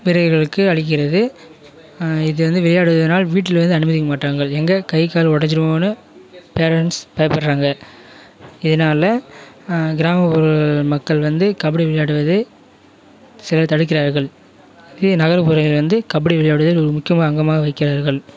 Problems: background sounds at intervals, continuous background conversations